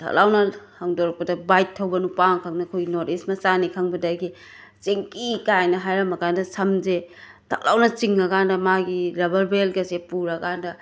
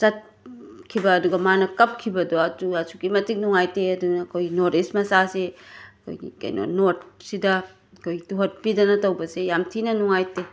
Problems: constant background noise